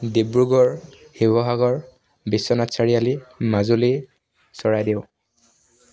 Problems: none marked